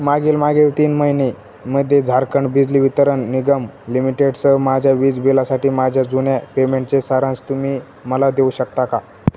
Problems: constant background noise